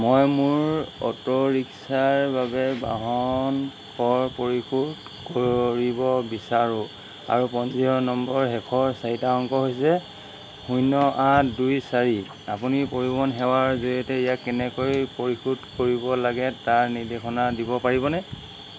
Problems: none marked